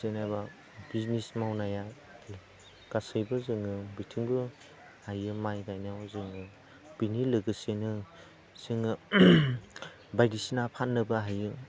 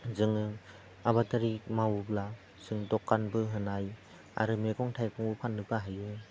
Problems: low volume